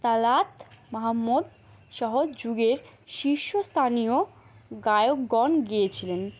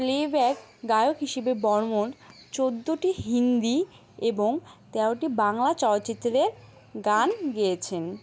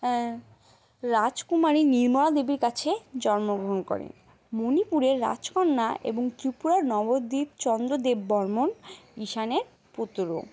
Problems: none marked